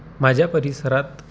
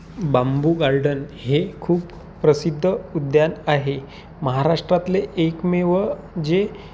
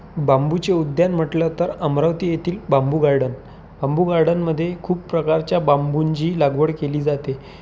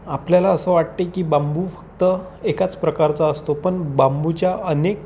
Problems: constant background noise